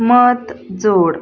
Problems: none marked